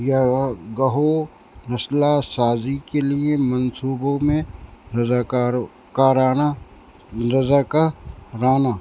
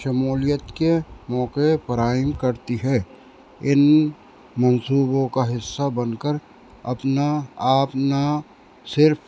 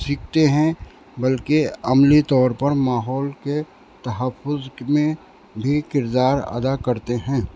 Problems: constant background noise